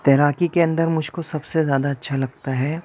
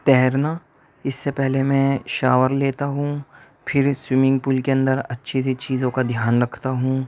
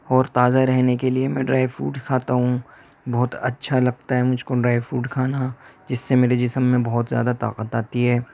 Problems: none marked